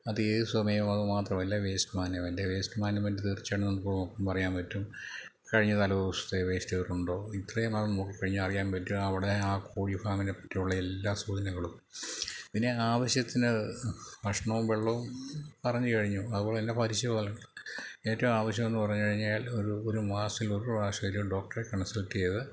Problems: low volume